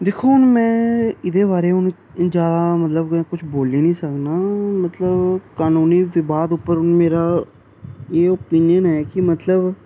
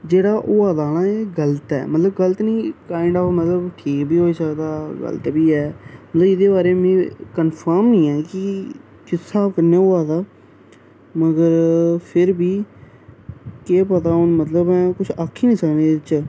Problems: none marked